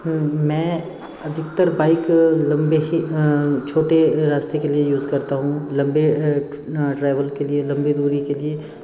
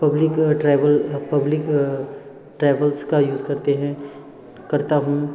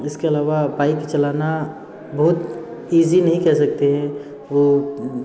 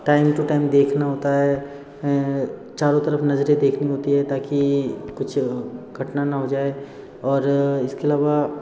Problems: constant background noise